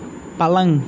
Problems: constant background noise